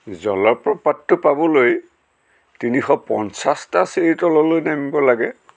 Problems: none marked